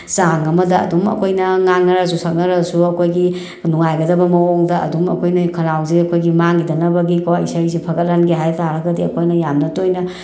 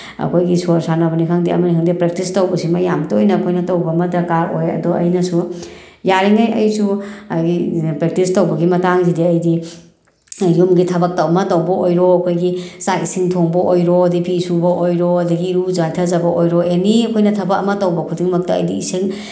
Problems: none marked